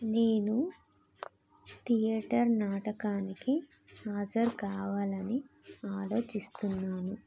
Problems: constant background noise